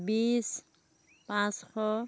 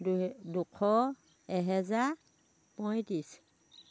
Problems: background sounds at intervals